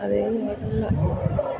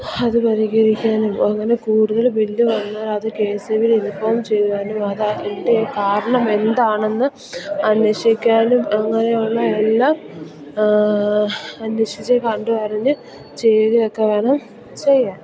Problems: constant background noise, low volume